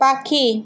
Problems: constant background noise